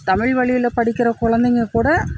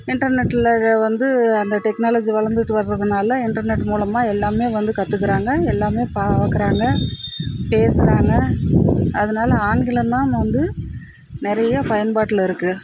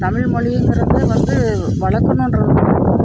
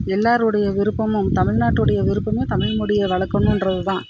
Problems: constant background noise